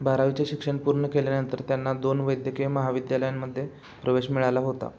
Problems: constant background noise